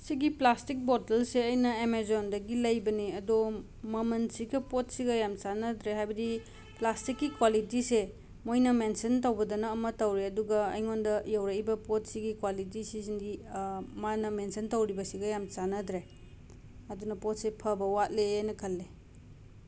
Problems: background sounds at intervals